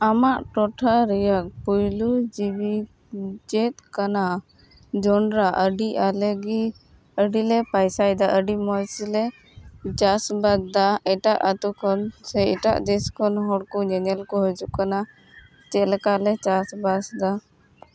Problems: constant background noise